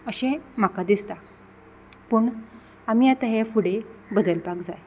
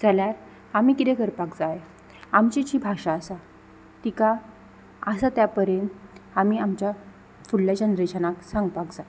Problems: none marked